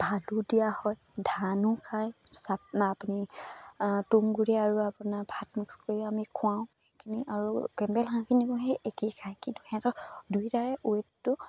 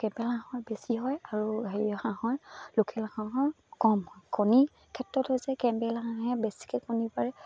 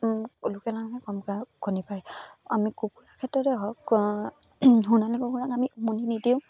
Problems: none marked